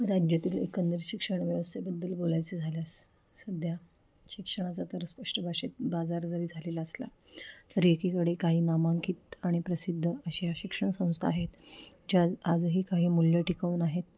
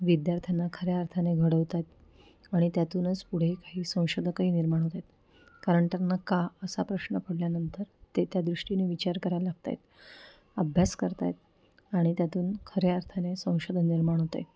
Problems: background sounds at intervals